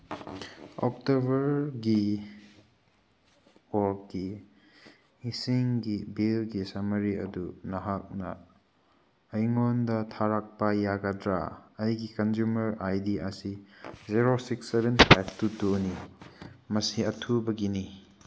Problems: background sounds at intervals